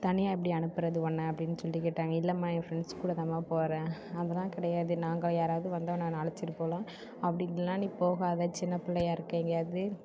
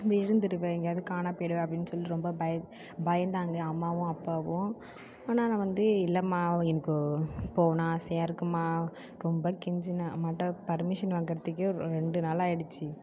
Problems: low volume